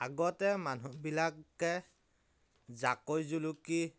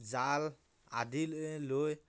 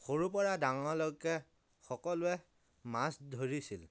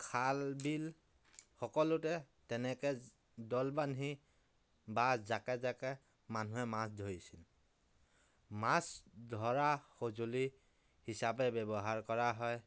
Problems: none marked